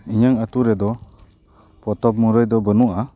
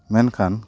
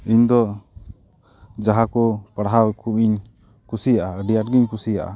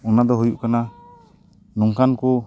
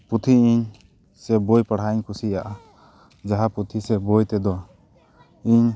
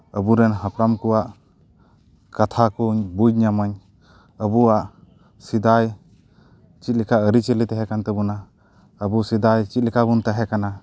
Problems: constant background noise